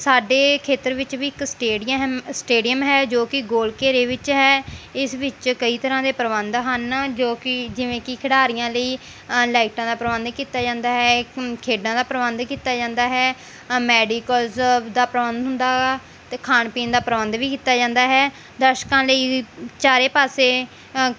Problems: none marked